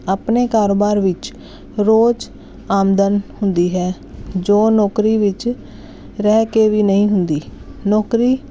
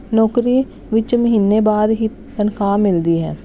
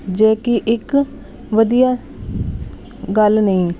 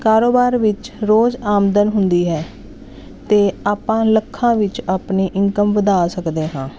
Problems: none marked